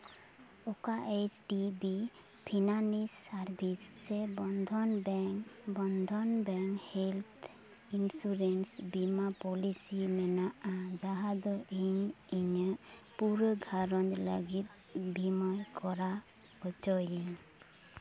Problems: background sounds at intervals, background conversations at intervals